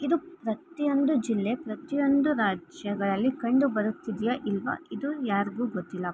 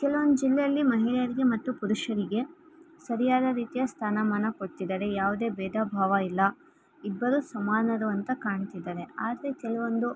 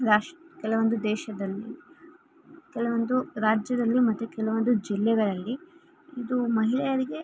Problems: background sounds at intervals